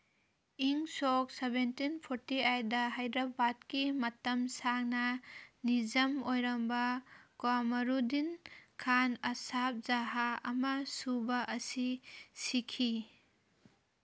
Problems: background sounds at intervals